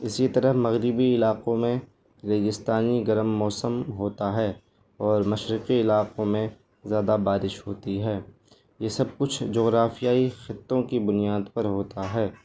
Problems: constant background noise